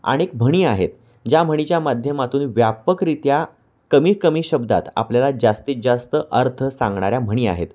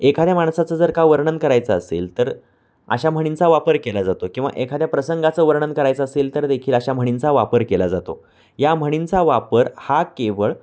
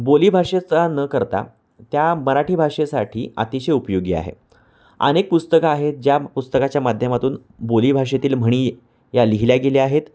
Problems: constant background noise